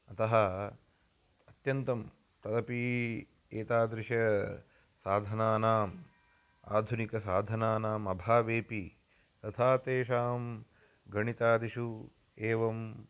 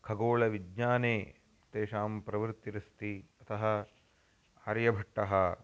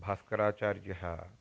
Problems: constant background noise